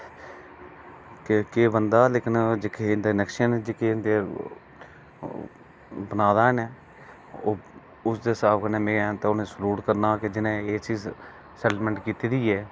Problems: low volume